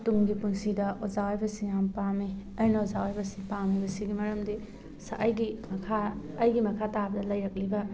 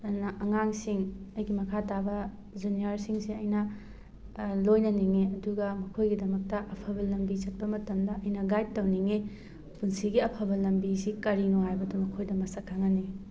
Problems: background sounds at intervals